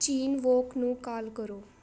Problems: constant background noise